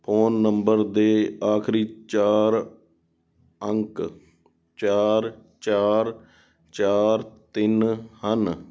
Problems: background sounds at intervals